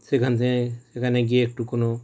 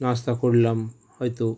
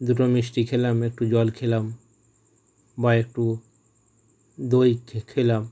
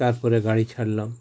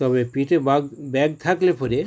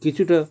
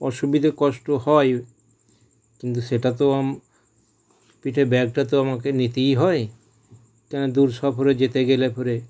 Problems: none marked